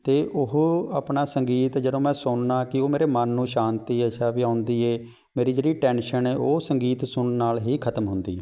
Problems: background sounds at intervals